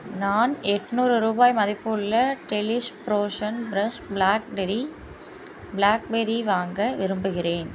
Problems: constant background noise